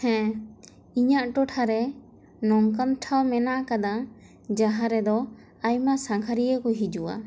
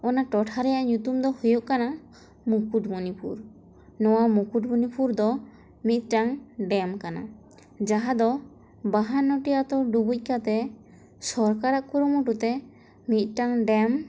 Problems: constant background noise